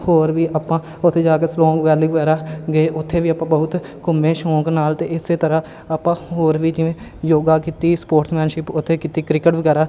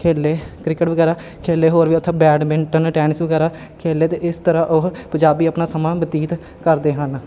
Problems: constant background noise